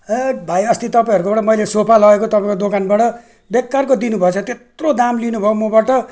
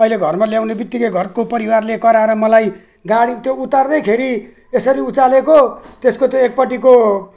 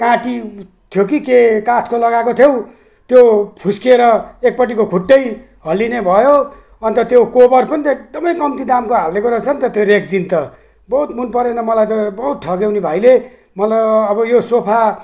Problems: none marked